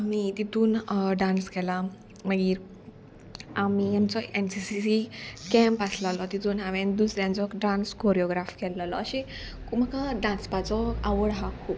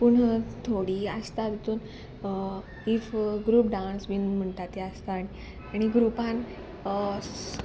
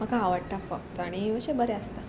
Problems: background sounds at intervals